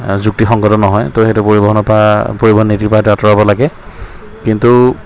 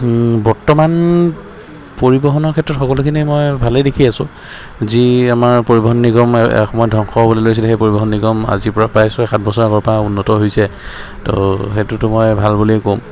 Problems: constant background noise, background conversations at intervals